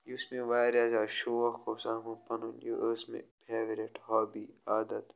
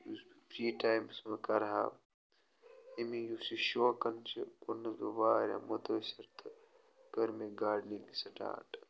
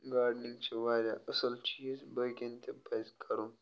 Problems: background sounds at intervals